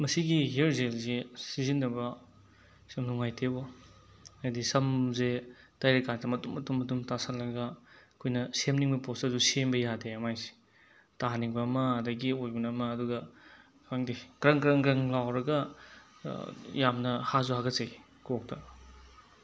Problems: constant background noise